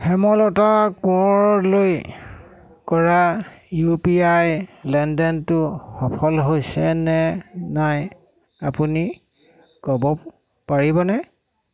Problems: constant background noise, background conversations at intervals